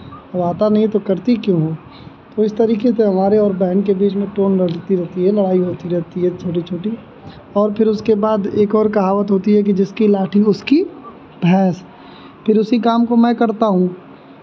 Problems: none marked